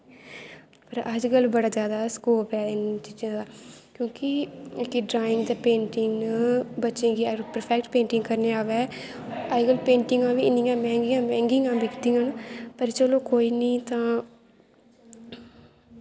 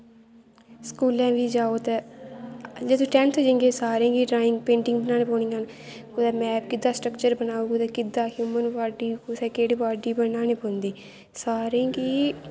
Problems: constant background noise